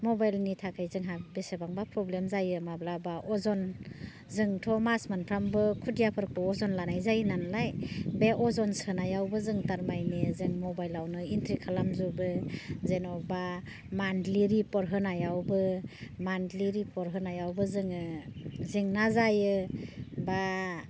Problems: low volume